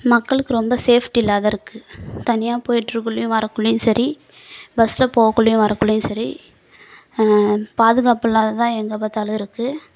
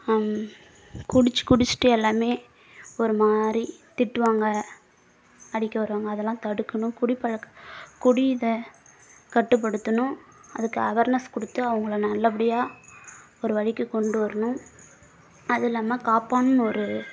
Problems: background sounds at intervals